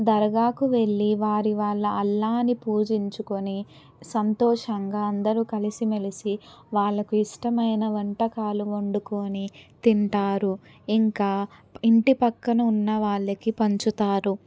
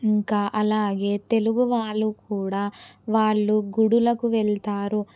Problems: none marked